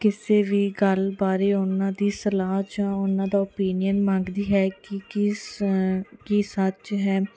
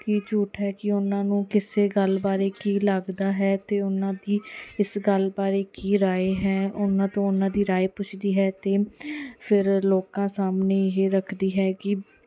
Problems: none marked